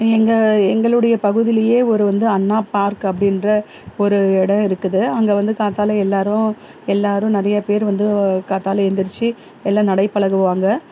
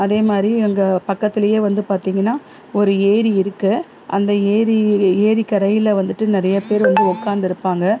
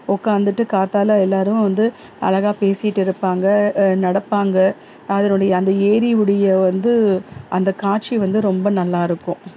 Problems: constant background noise